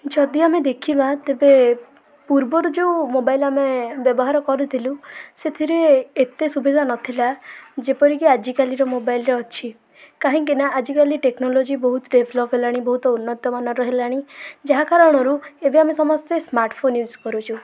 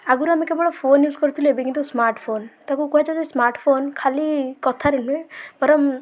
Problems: constant background noise, continuous background conversations